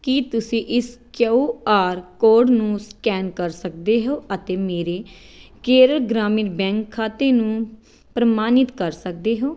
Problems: background sounds at intervals